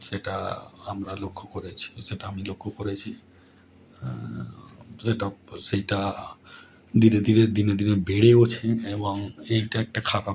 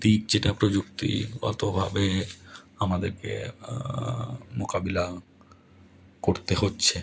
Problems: none marked